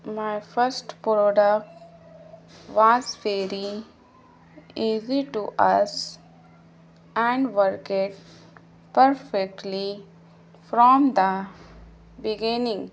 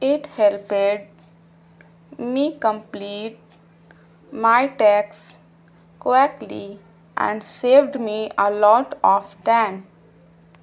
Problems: constant background noise